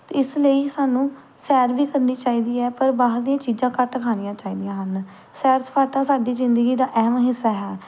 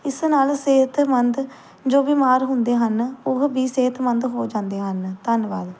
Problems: background sounds at intervals